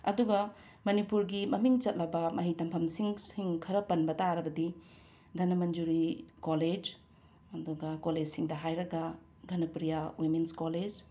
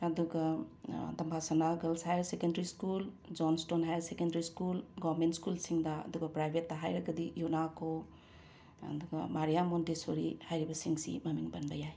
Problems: none marked